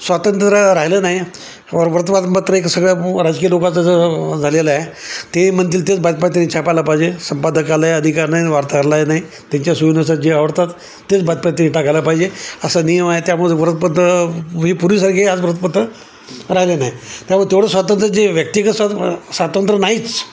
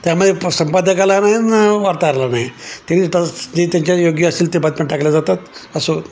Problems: constant background noise, background conversations at intervals